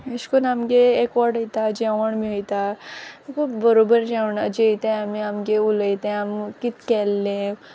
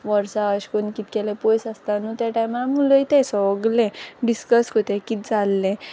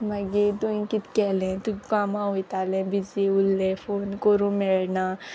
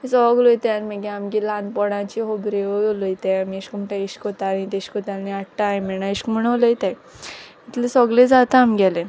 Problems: constant background noise